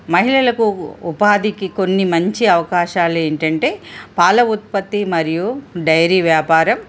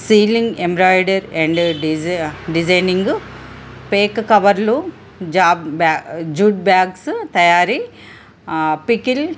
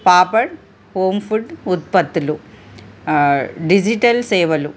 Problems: constant background noise